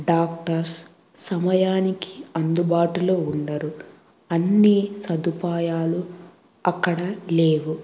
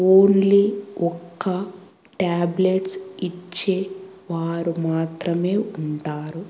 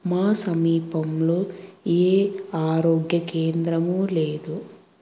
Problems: background sounds at intervals